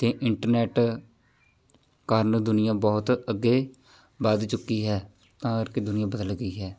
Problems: constant background noise